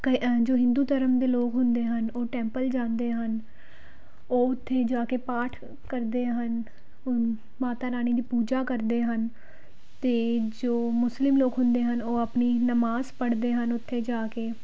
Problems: background sounds at intervals